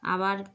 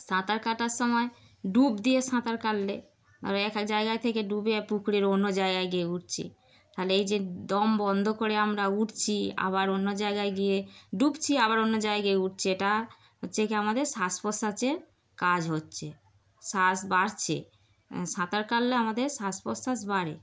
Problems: constant background noise